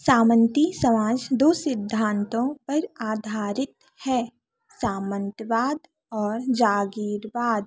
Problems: none marked